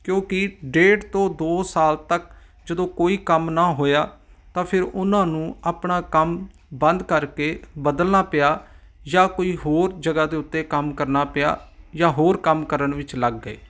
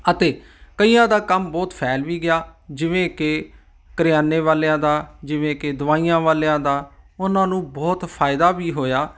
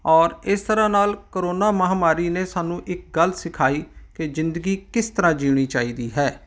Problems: none marked